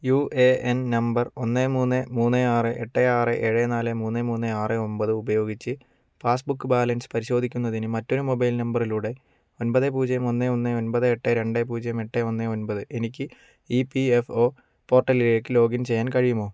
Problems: none marked